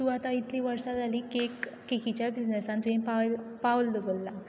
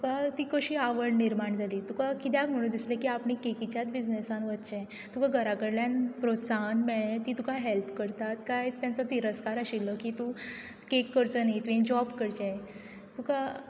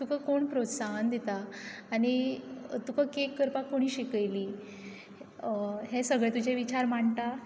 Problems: background sounds at intervals